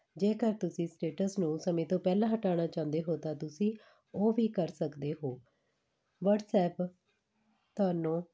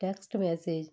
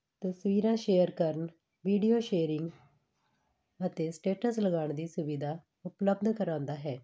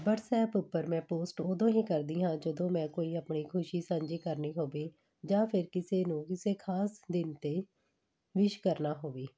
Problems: none marked